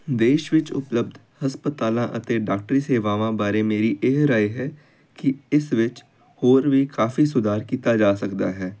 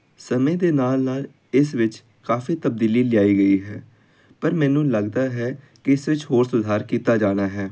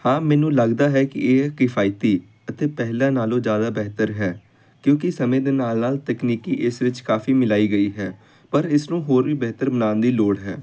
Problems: constant background noise